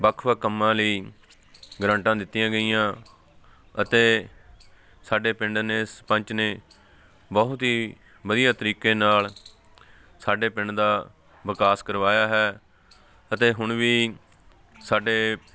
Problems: none marked